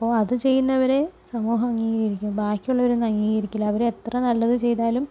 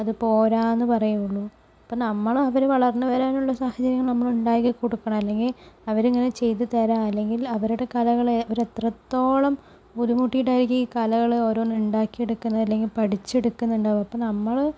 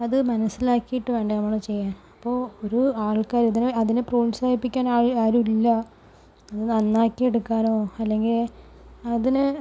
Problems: low volume